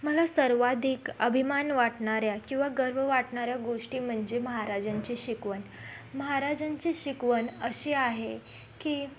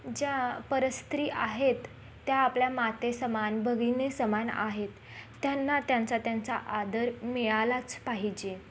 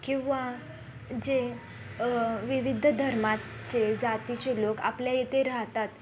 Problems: background sounds at intervals, background conversations at intervals